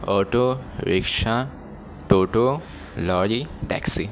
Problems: none marked